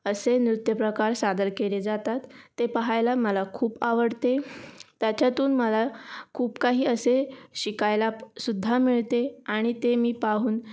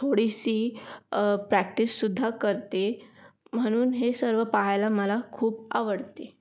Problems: none marked